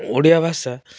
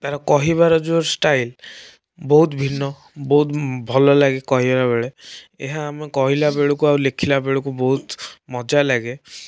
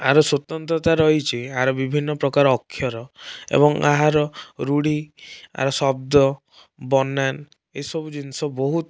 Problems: background sounds at intervals